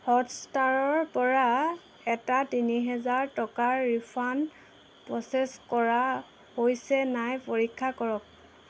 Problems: none marked